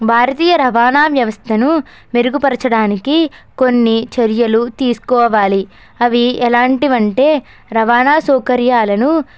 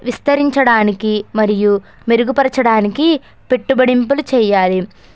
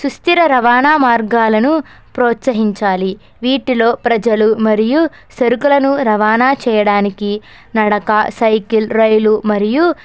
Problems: background sounds at intervals